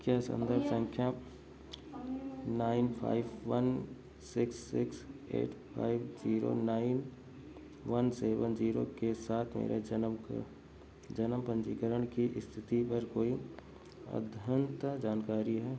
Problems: background sounds at intervals, background conversations at intervals